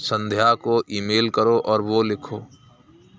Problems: none marked